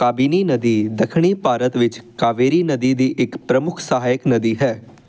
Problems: none marked